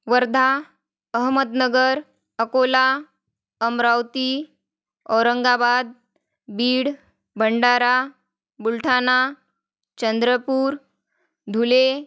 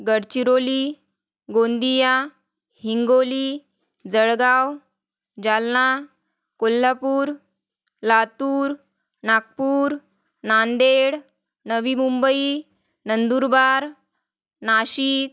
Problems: constant background noise